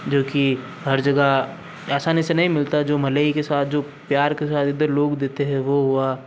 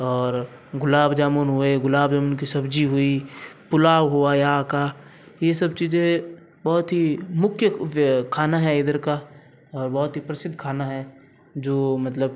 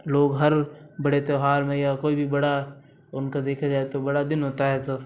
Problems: none marked